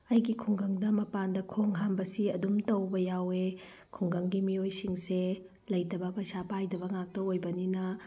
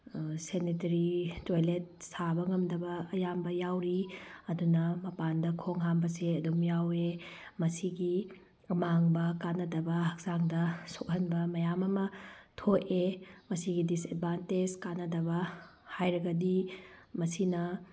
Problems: none marked